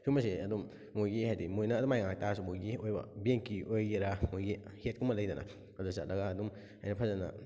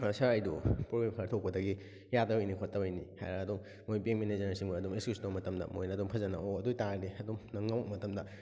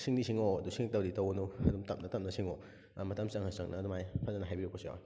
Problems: background sounds at intervals